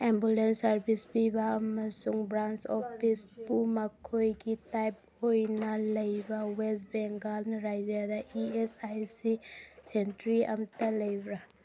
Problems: background conversations at intervals